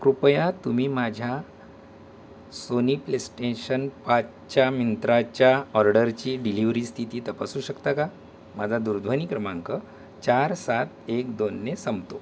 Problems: constant background noise